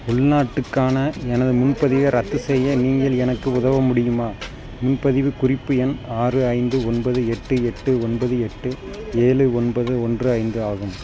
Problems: background sounds at intervals